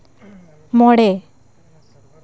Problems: continuous background conversations